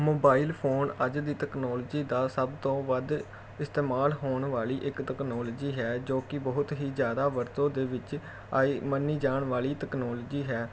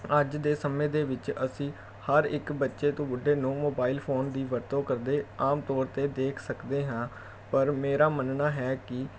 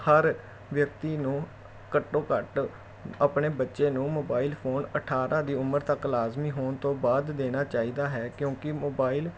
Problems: background sounds at intervals